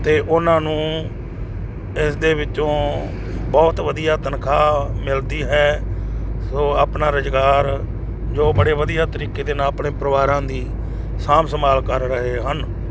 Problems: constant background noise